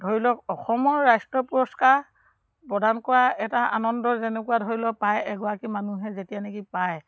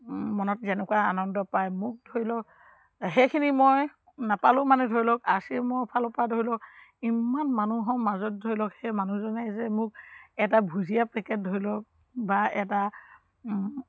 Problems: background sounds at intervals